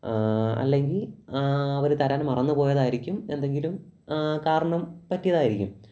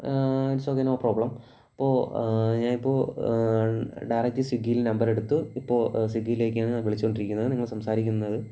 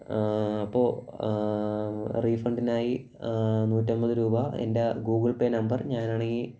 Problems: low volume